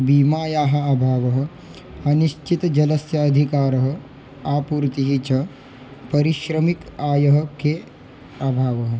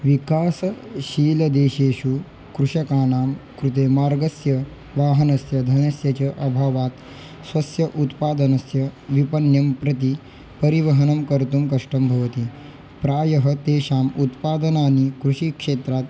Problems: constant background noise